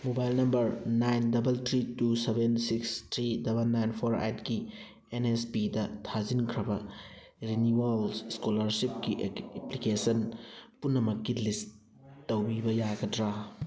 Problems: background sounds at intervals, background conversations at intervals